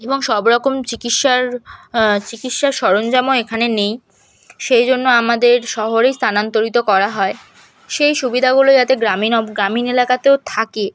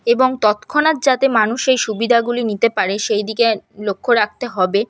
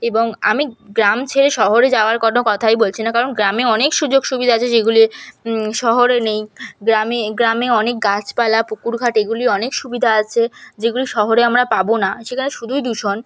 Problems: background sounds at intervals